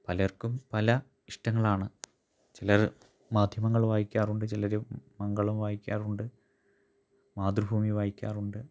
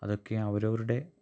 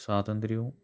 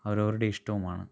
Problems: low volume